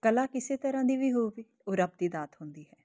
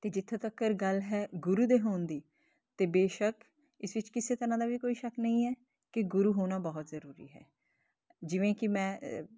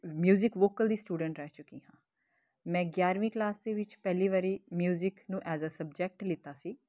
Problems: constant background noise